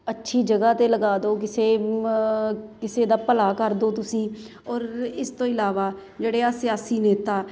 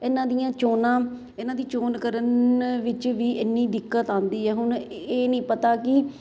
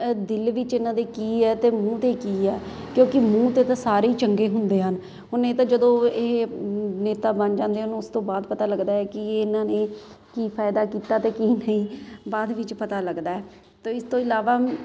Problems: constant background noise